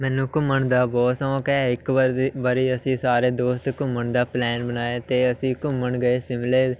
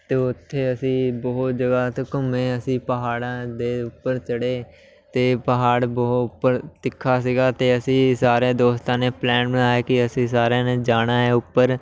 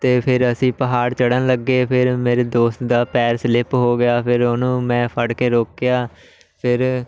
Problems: none marked